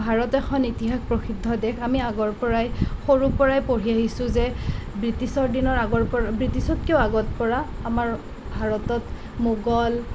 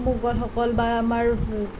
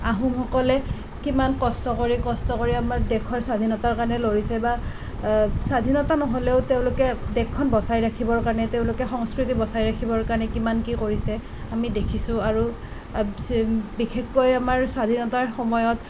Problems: none marked